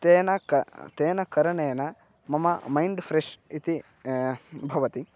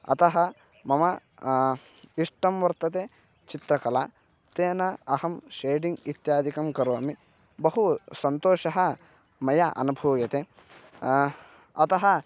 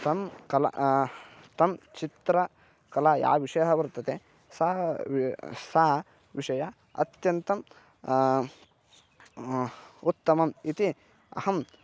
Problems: constant background noise